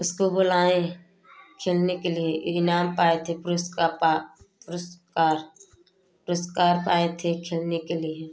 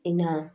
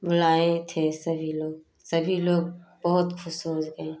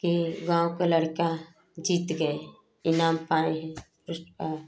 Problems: none marked